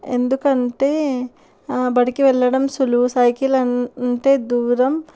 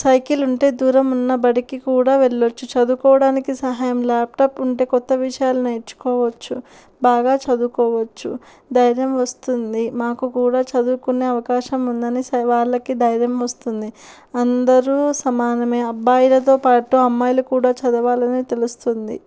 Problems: background sounds at intervals